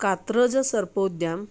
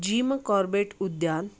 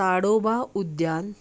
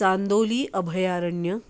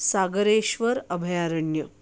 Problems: background sounds at intervals